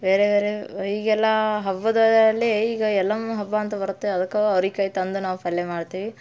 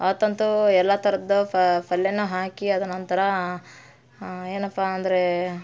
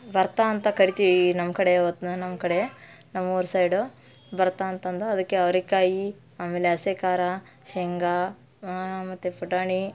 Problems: none marked